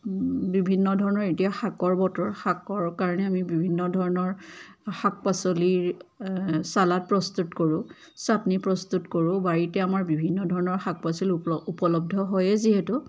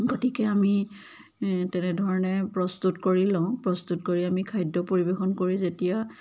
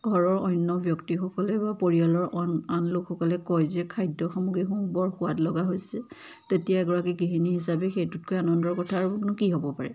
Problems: constant background noise, background conversations at intervals